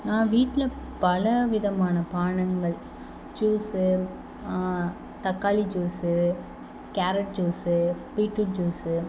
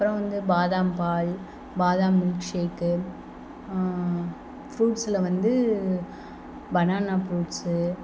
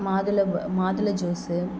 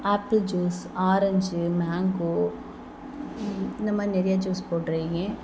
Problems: background sounds at intervals